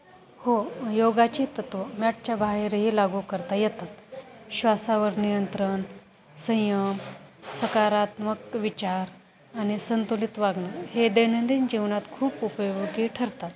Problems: constant background noise